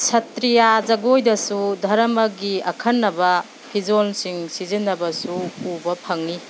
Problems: none marked